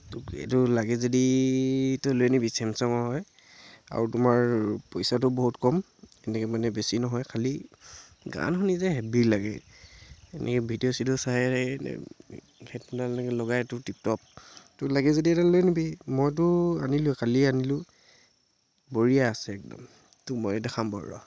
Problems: constant background noise